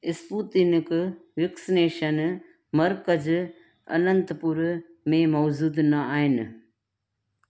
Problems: none marked